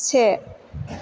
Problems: constant background noise